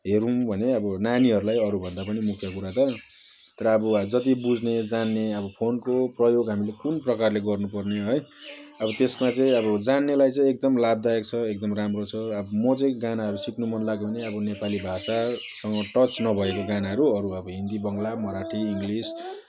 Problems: none marked